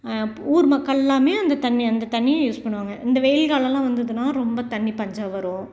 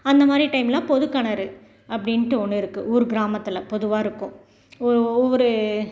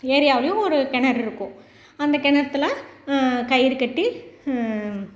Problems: none marked